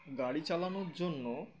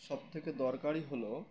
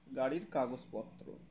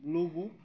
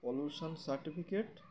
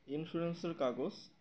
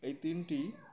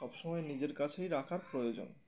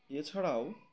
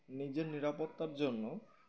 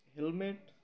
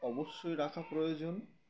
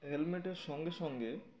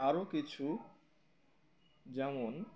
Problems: constant background noise, continuous background conversations